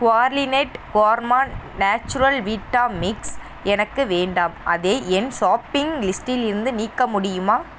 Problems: constant background noise